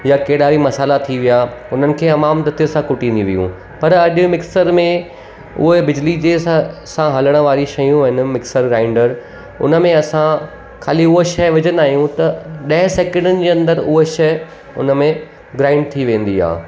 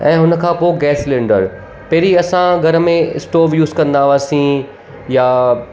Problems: constant background noise, echo